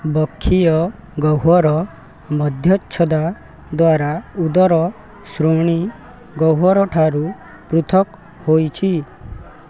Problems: none marked